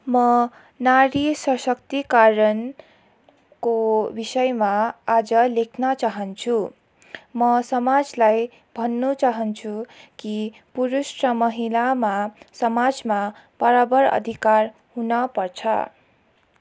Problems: background sounds at intervals